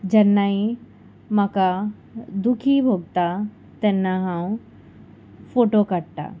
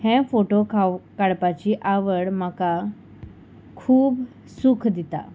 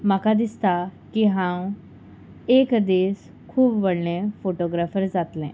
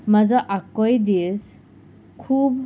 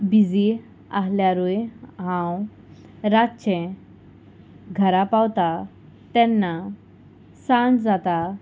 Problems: constant background noise